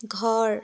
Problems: none marked